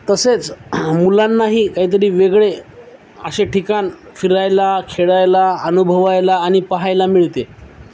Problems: none marked